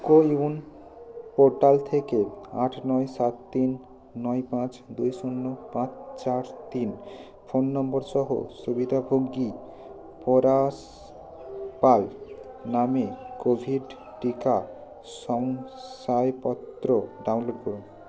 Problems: constant background noise